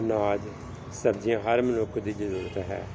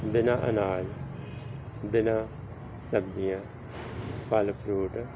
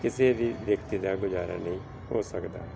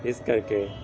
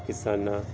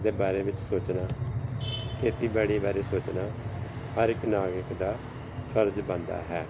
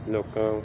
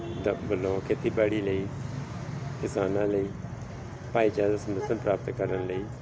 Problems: none marked